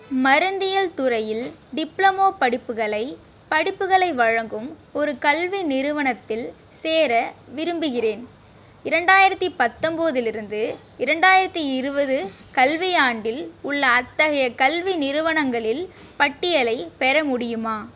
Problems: none marked